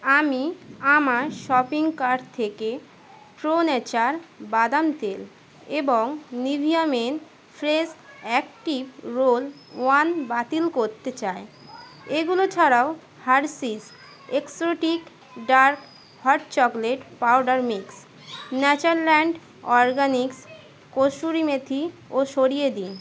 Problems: constant background noise